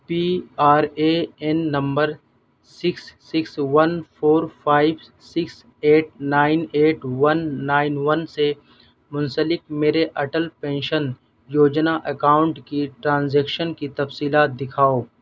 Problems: background sounds at intervals